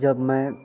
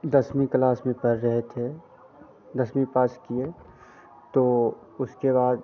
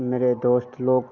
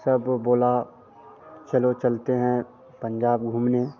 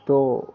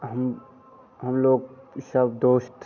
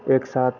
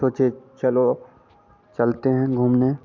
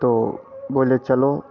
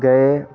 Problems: constant background noise